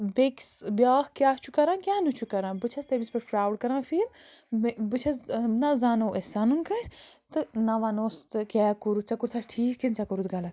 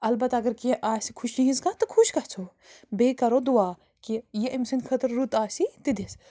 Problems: constant background noise